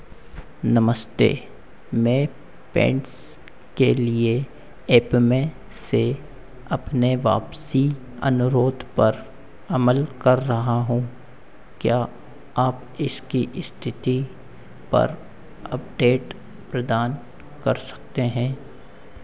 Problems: constant background noise, echo